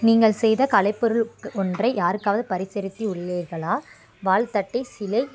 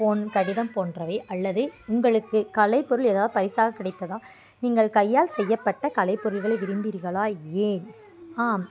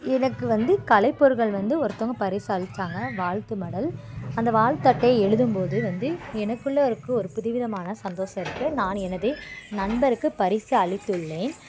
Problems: background sounds at intervals